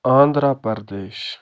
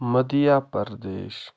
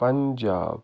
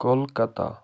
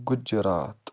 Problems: none marked